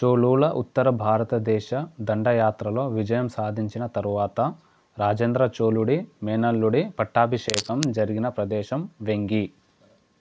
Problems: none marked